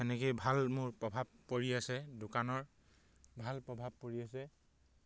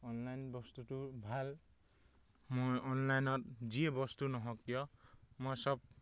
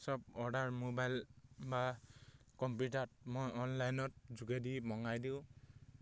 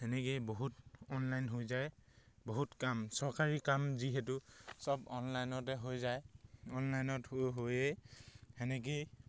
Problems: none marked